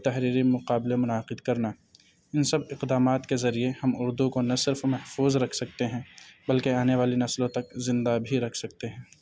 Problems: none marked